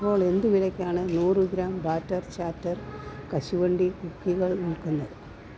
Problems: constant background noise, low volume